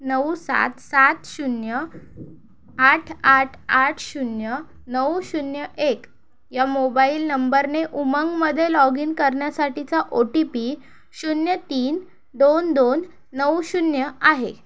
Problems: none marked